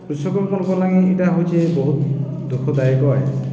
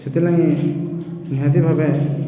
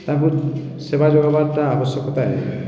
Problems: constant background noise